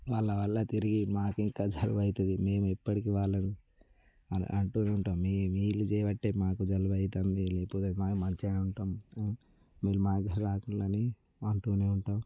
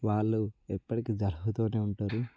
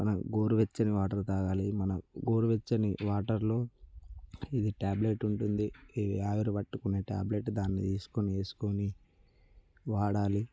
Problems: none marked